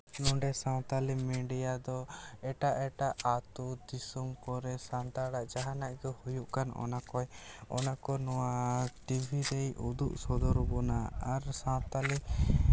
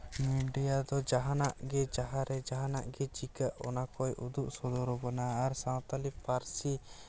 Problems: background sounds at intervals